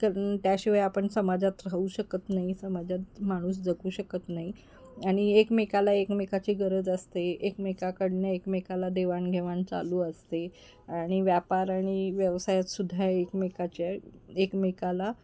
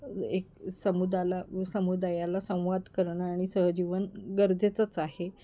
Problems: background sounds at intervals